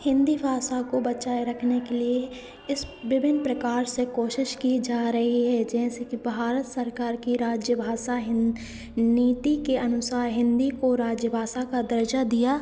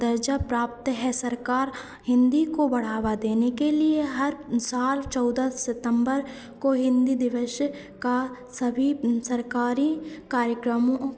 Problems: constant background noise, echo